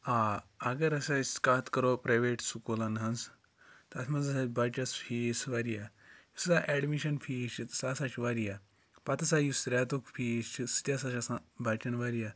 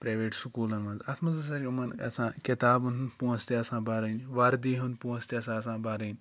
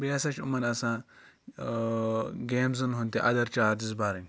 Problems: background sounds at intervals